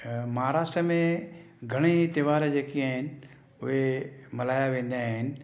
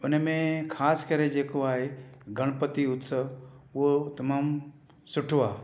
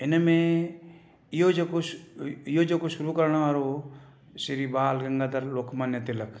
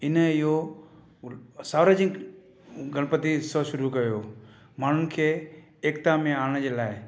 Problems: echo